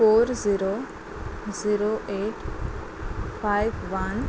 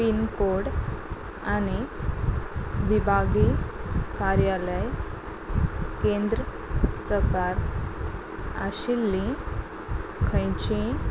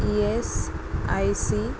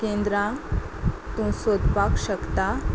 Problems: constant background noise